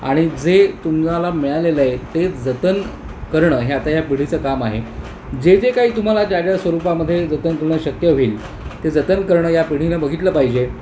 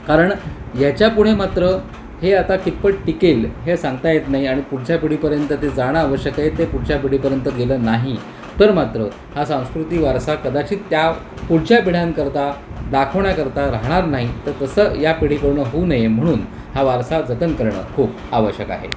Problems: constant background noise